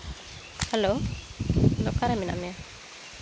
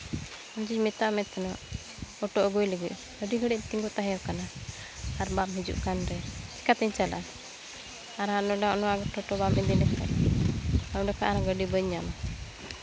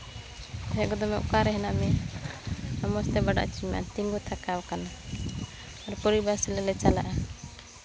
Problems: constant background noise, continuous background conversations